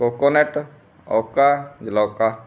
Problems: background sounds at intervals